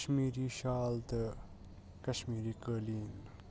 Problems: constant background noise, low volume